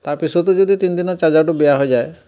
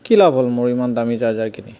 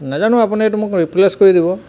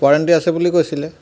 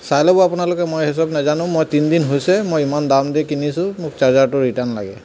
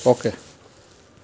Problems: background sounds at intervals